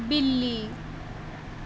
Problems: constant background noise